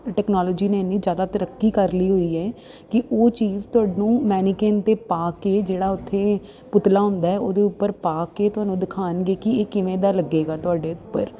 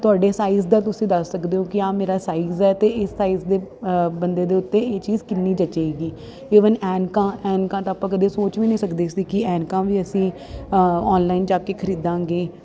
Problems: none marked